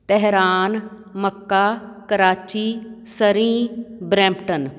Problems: none marked